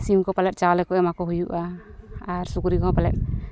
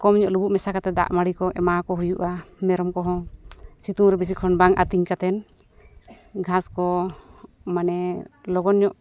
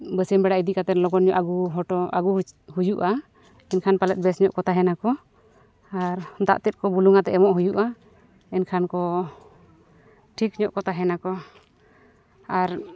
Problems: none marked